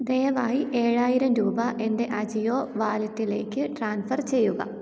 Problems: none marked